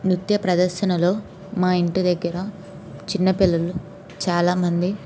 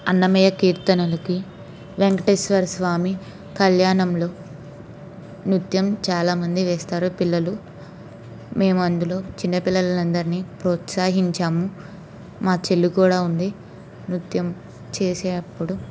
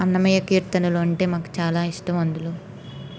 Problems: constant background noise